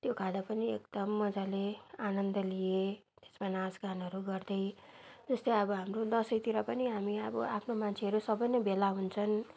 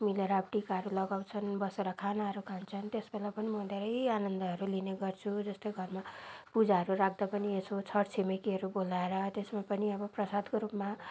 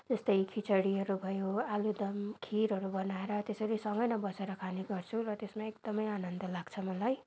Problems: background sounds at intervals